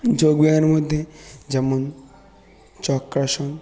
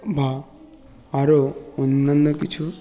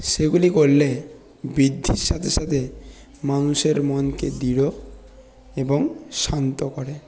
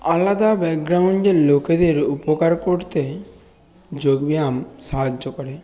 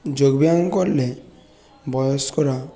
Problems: none marked